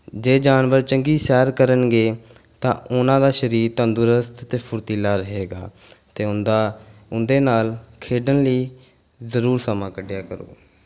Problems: background sounds at intervals